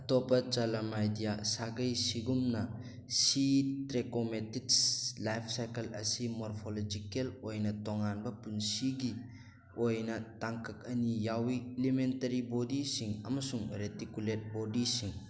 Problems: background sounds at intervals